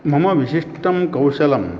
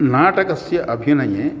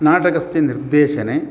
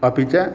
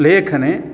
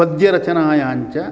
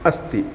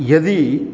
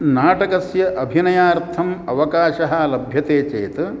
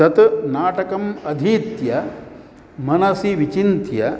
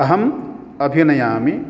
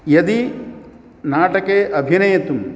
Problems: none marked